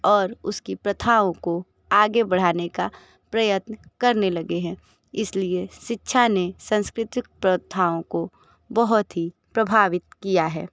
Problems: none marked